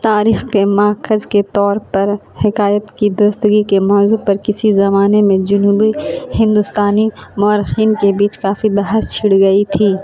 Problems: constant background noise